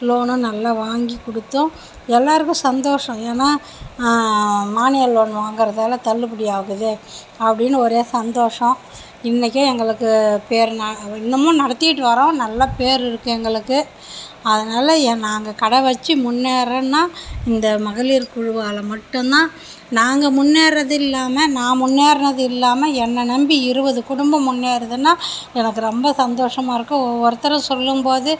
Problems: constant background noise